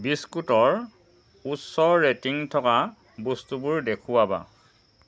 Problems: constant background noise